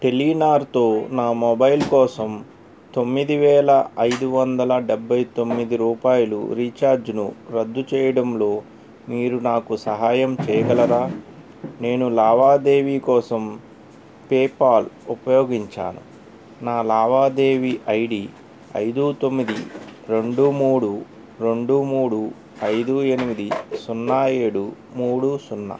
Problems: background sounds at intervals